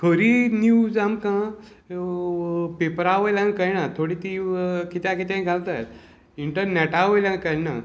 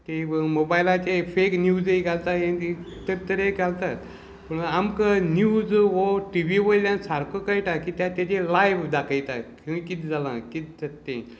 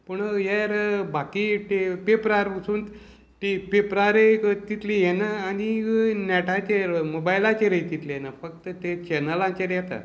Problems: constant background noise, background conversations at intervals